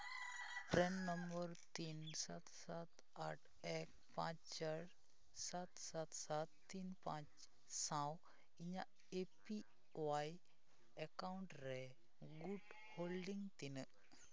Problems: background conversations at intervals, low volume